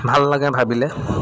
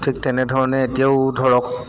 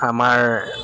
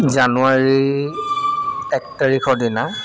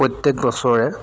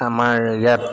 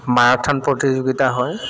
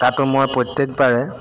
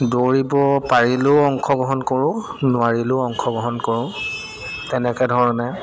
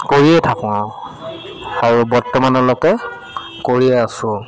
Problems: constant background noise